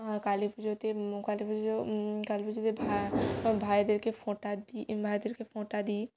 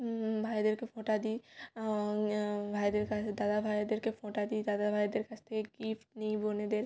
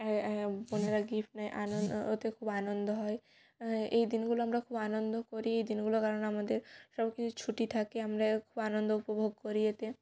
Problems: none marked